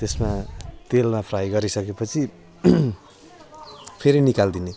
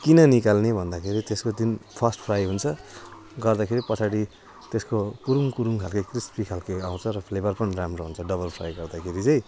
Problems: constant background noise